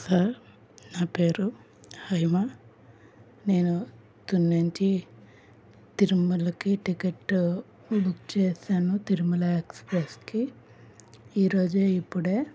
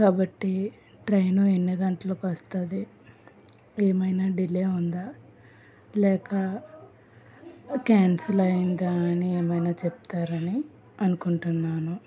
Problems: constant background noise